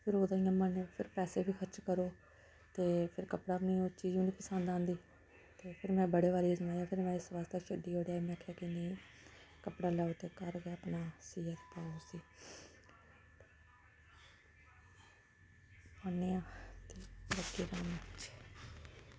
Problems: none marked